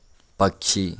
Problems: none marked